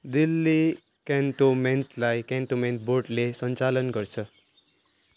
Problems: constant background noise